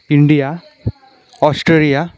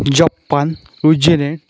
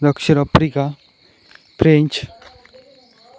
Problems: constant background noise, background conversations at intervals